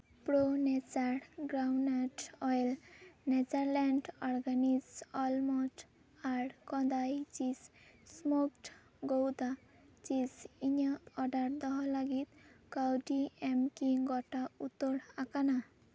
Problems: none marked